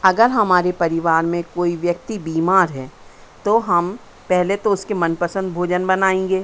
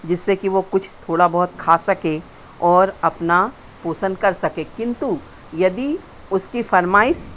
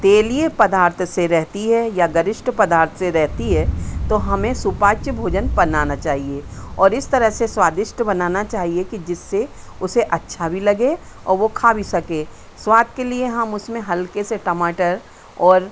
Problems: constant background noise